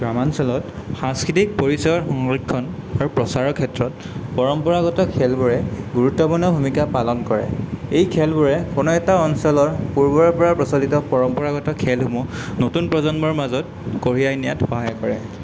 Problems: none marked